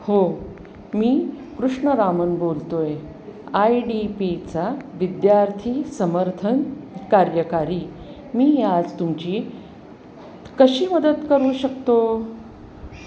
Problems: constant background noise, background conversations at intervals